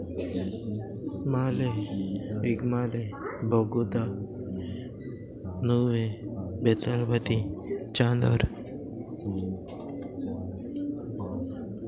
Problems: constant background noise, continuous background conversations